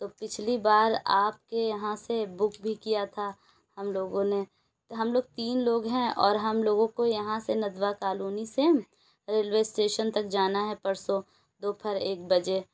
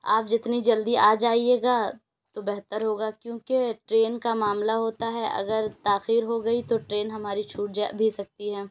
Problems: none marked